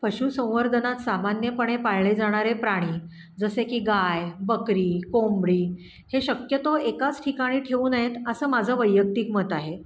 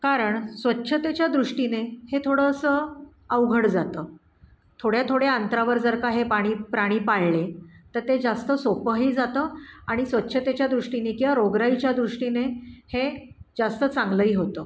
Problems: background sounds at intervals